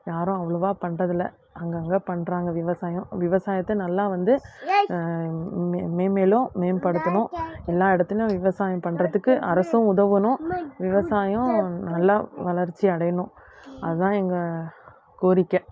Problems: constant background noise